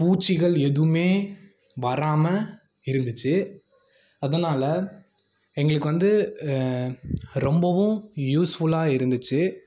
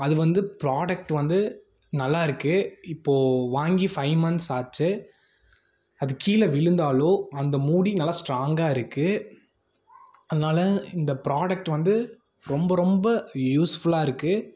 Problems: none marked